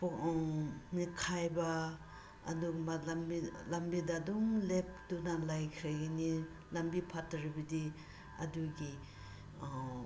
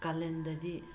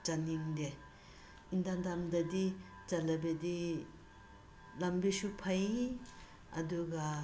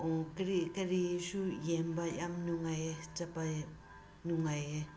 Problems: constant background noise